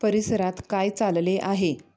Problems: none marked